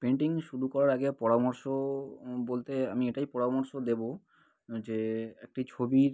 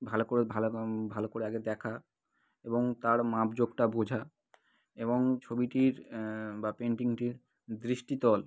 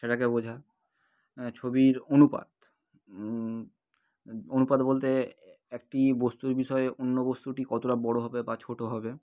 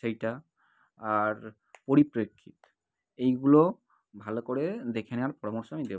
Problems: none marked